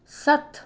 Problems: none marked